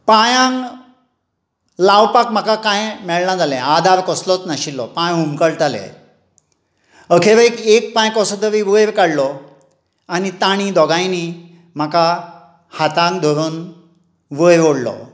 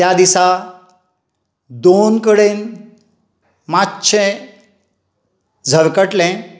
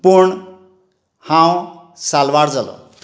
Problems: none marked